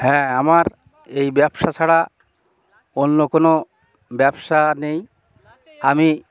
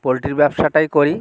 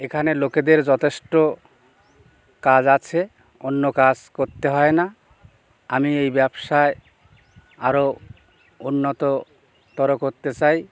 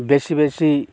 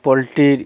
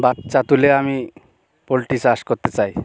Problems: background sounds at intervals